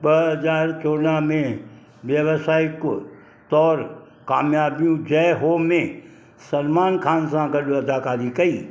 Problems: constant background noise